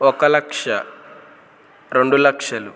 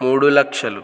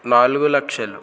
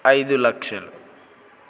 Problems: none marked